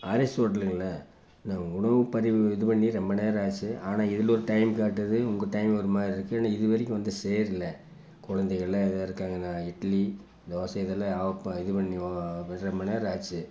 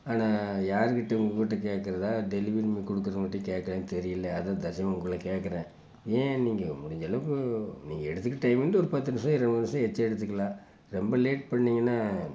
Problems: constant background noise